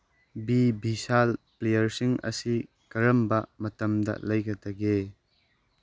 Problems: none marked